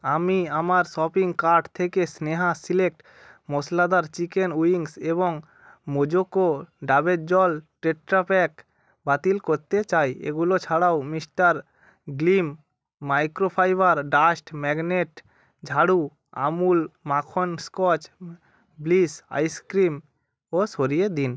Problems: none marked